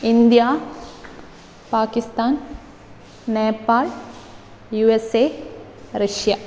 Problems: none marked